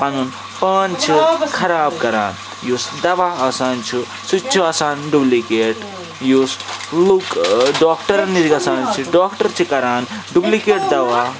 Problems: constant background noise